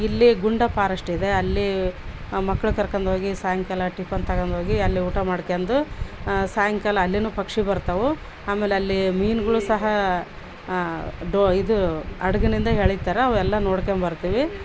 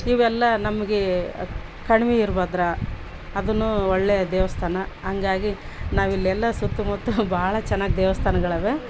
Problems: background sounds at intervals